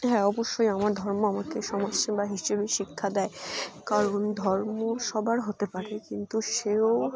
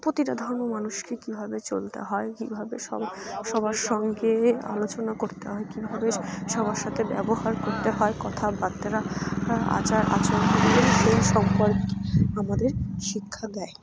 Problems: none marked